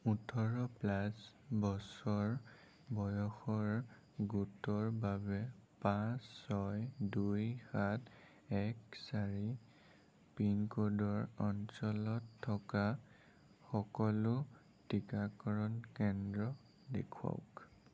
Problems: low volume